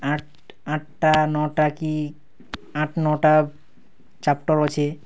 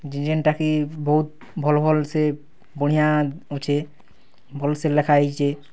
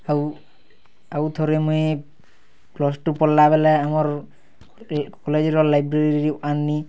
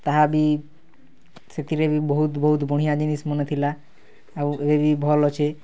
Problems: background sounds at intervals